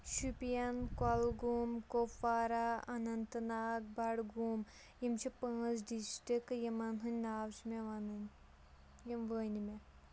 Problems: none marked